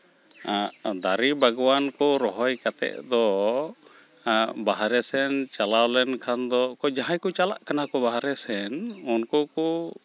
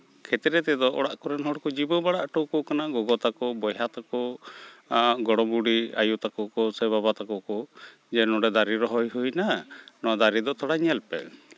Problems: none marked